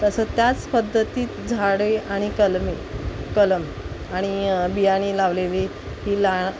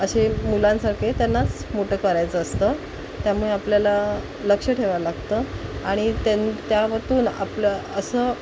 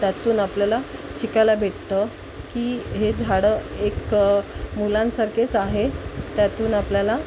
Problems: constant background noise